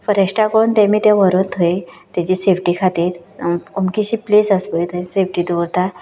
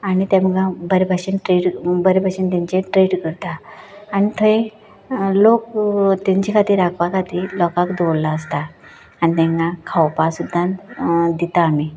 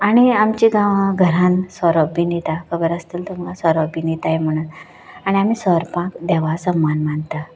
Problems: background sounds at intervals